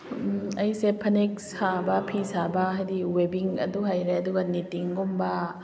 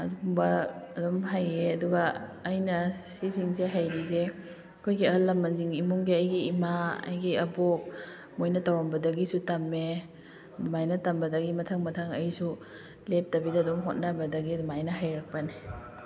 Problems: background conversations at intervals